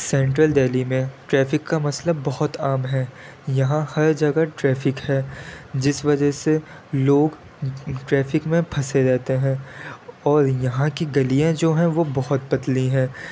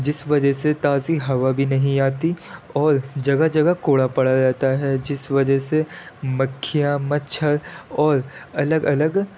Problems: constant background noise